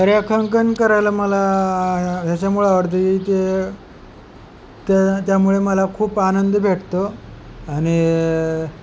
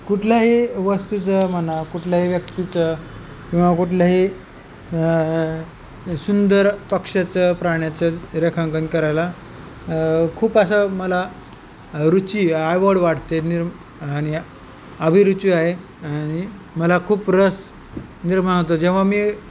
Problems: constant background noise